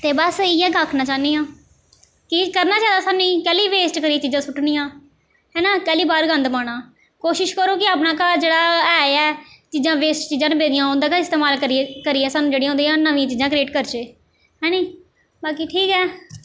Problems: none marked